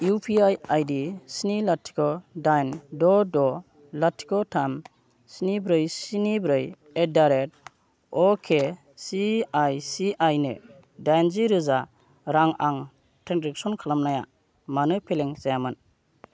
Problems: none marked